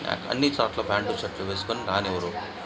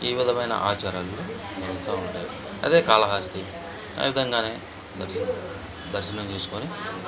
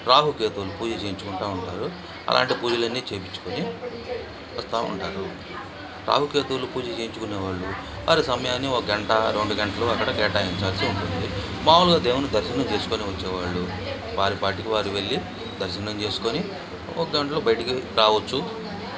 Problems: constant background noise